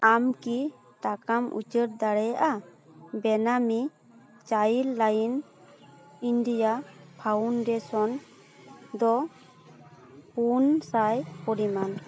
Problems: background sounds at intervals, continuous background conversations